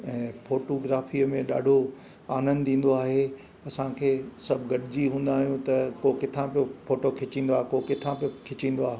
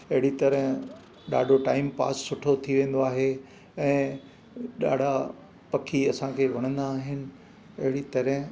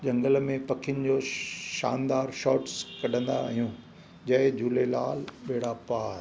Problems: constant background noise, echo